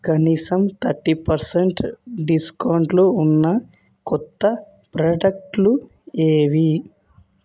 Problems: none marked